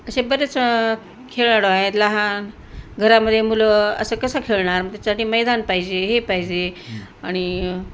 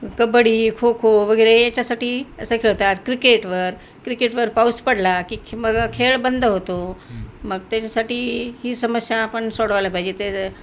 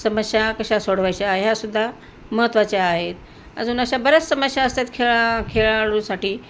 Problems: constant background noise